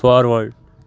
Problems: none marked